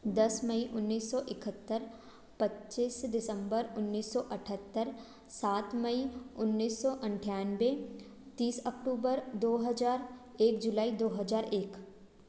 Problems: background sounds at intervals